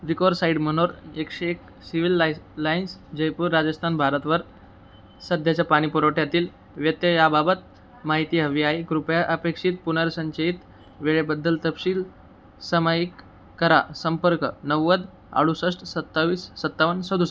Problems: background sounds at intervals